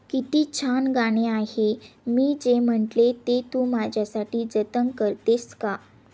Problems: constant background noise